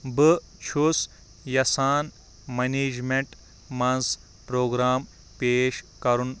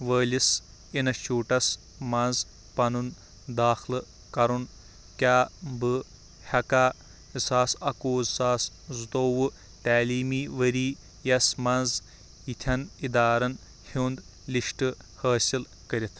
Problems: background sounds at intervals